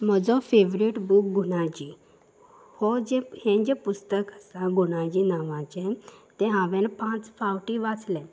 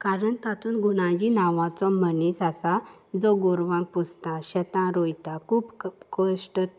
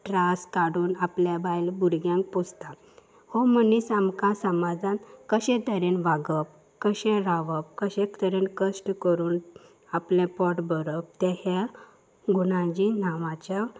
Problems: background sounds at intervals